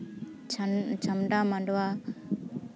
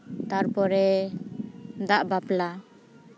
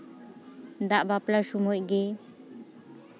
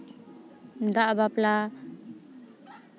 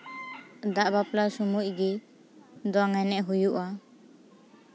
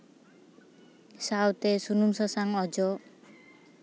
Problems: constant background noise, background conversations at intervals